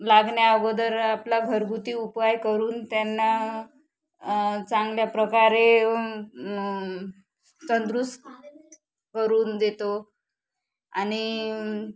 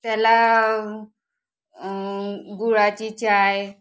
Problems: background sounds at intervals, background conversations at intervals